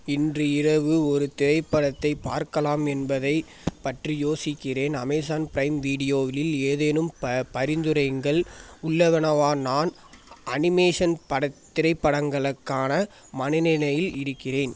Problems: constant background noise